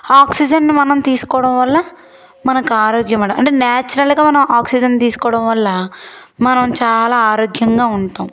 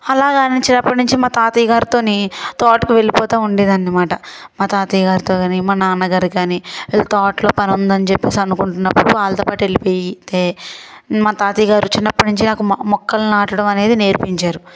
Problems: background sounds at intervals